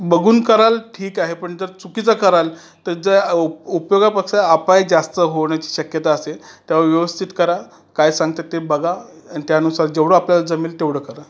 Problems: constant background noise